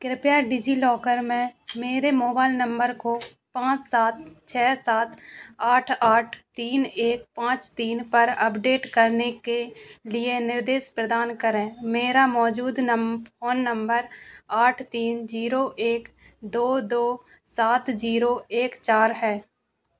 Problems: constant background noise